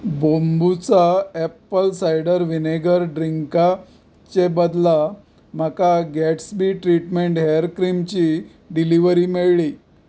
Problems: background sounds at intervals